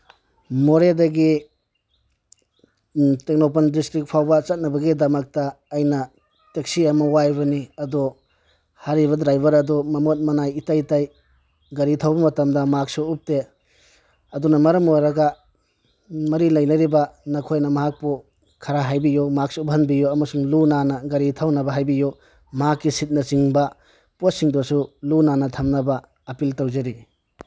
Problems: background sounds at intervals